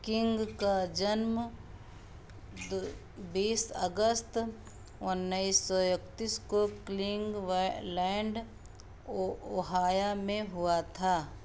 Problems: echo